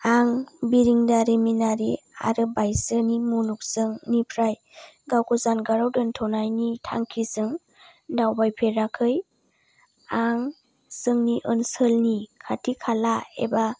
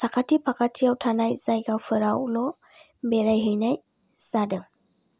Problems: low volume